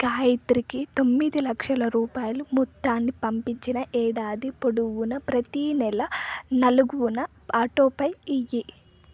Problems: constant background noise